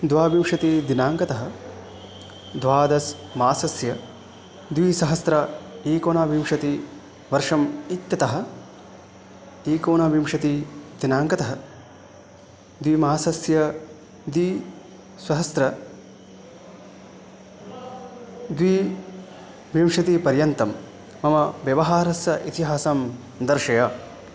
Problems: constant background noise